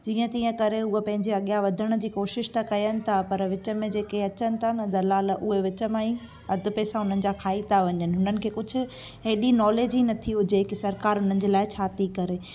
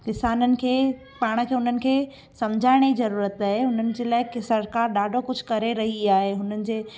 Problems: constant background noise